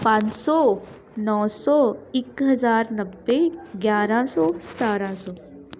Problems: none marked